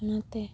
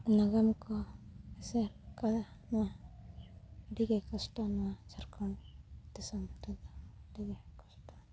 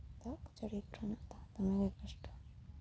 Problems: background sounds at intervals